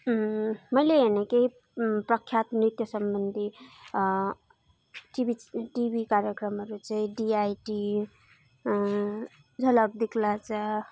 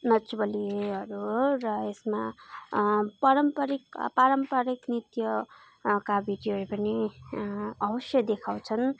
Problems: background conversations at intervals